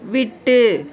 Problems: background conversations at intervals